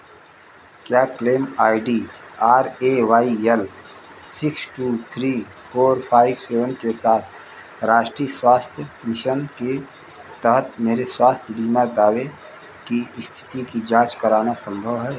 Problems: constant background noise